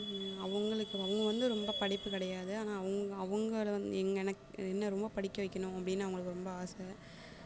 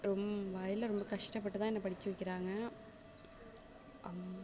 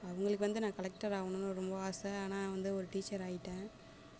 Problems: constant background noise, background conversations at intervals